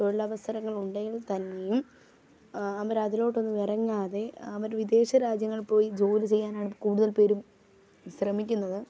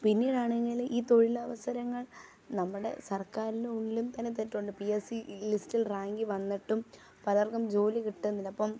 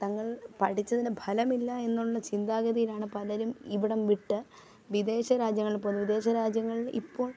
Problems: background sounds at intervals, low volume